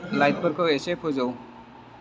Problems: none marked